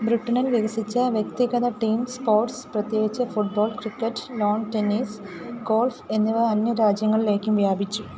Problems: none marked